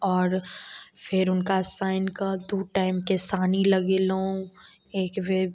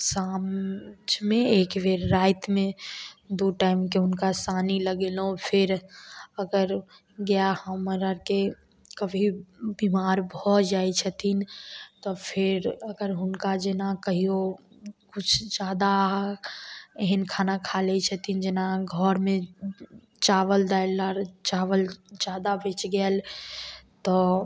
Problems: none marked